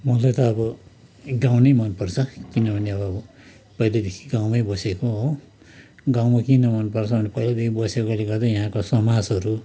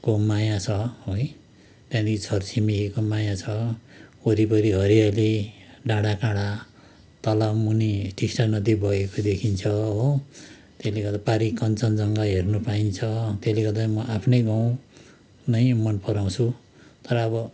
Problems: constant background noise